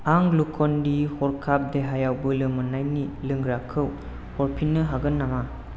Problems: none marked